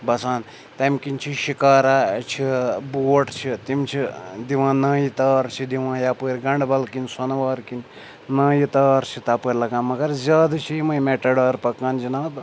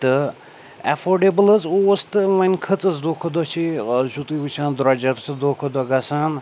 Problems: none marked